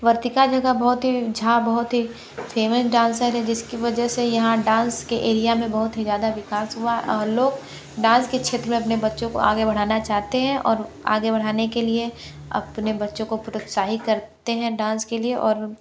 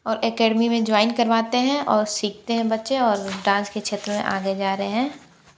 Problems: background sounds at intervals